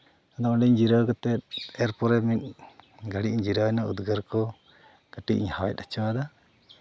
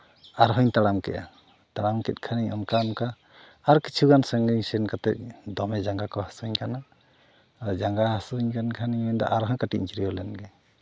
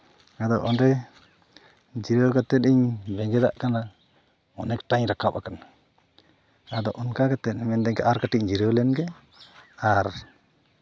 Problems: background sounds at intervals